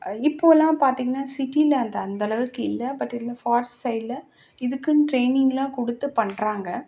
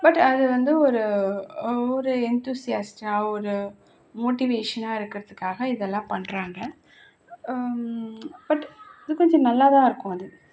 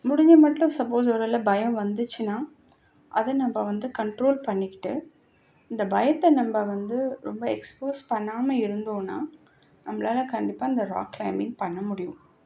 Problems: constant background noise